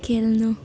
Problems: constant background noise